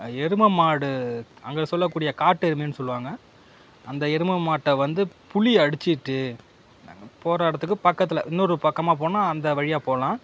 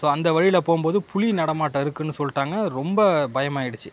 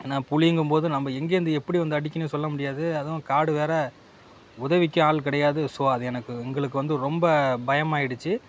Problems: constant background noise